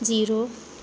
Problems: background sounds at intervals